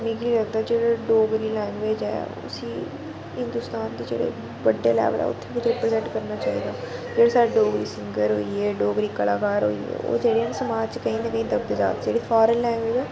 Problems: constant background noise